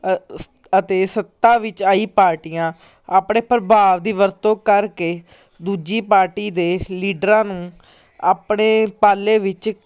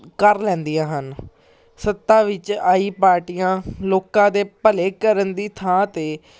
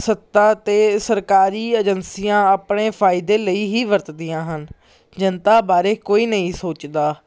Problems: none marked